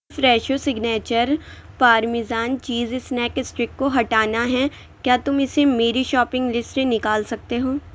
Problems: constant background noise